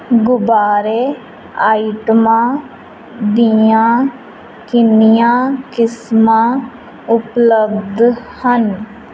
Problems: none marked